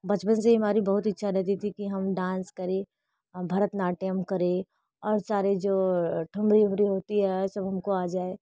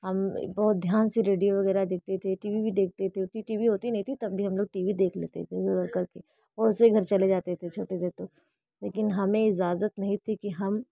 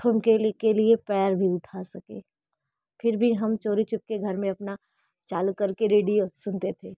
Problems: none marked